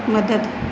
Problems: constant background noise, echo